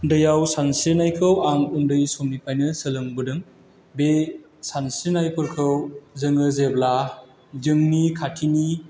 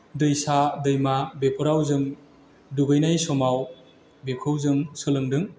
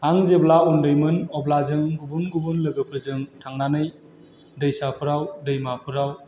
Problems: constant background noise